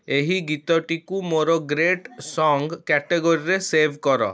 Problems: none marked